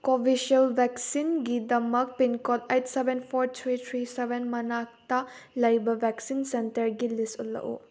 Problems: none marked